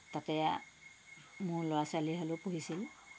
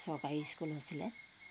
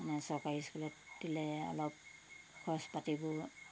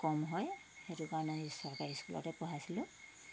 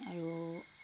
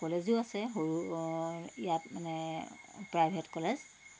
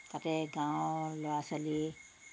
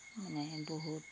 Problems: none marked